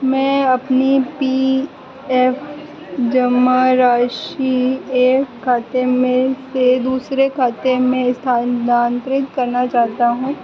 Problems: constant background noise